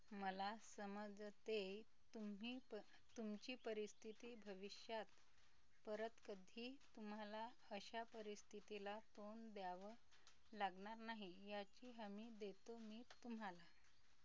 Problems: constant background noise, low volume